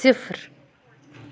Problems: background sounds at intervals